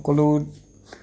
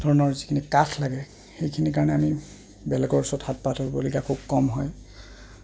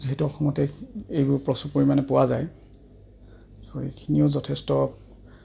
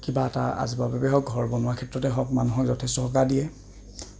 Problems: background sounds at intervals